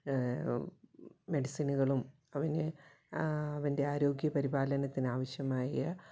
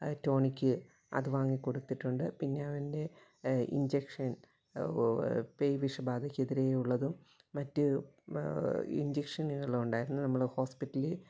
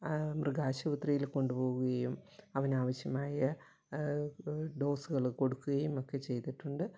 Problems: low volume